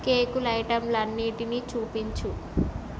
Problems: constant background noise